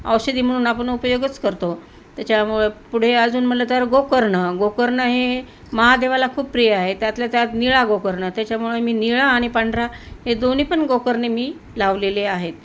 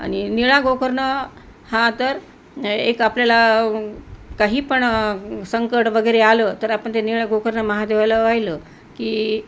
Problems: constant background noise